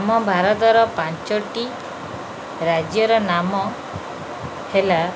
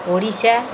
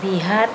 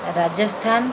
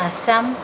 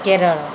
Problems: none marked